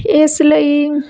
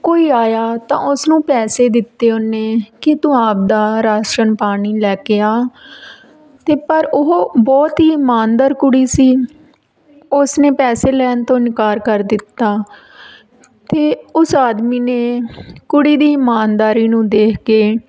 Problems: background conversations at intervals